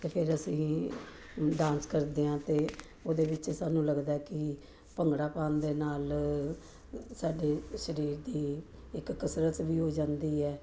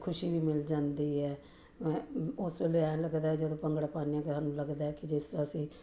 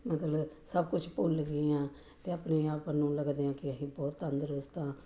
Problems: none marked